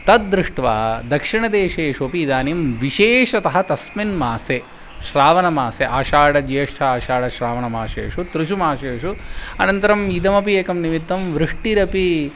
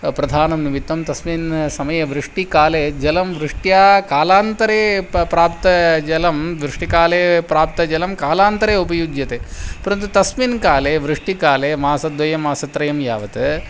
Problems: background sounds at intervals